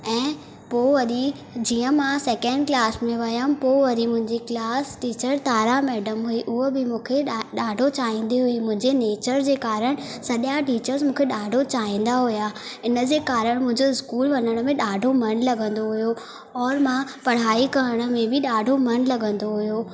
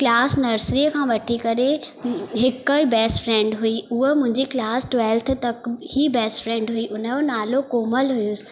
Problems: constant background noise